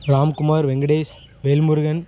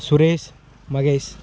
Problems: background sounds at intervals